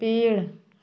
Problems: none marked